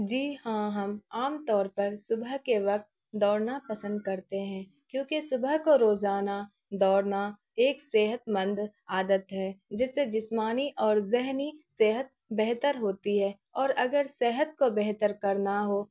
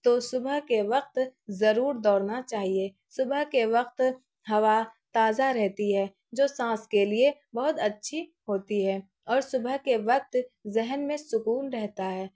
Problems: none marked